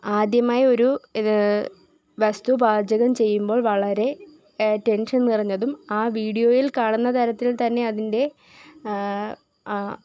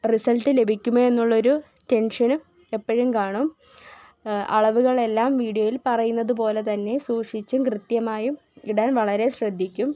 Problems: none marked